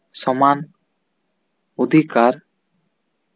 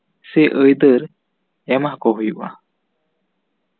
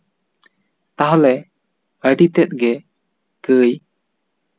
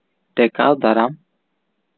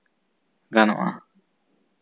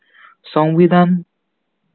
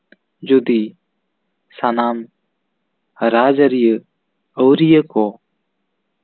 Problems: none marked